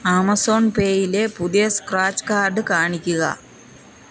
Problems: background sounds at intervals